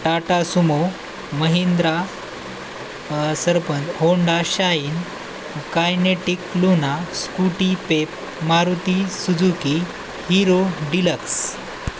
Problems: constant background noise